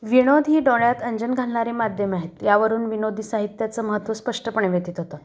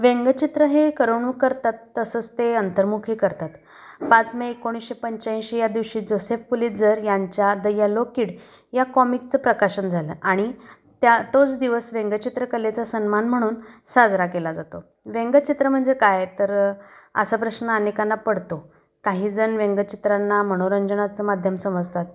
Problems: constant background noise